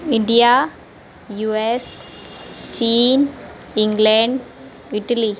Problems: constant background noise